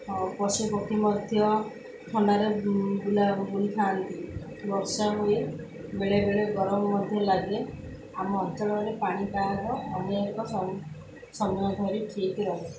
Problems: none marked